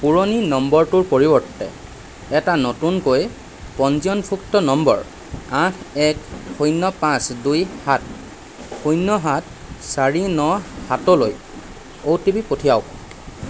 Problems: constant background noise